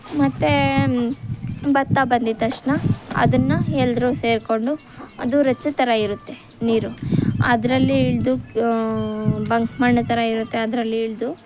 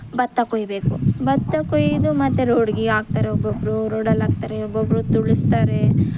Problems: background sounds at intervals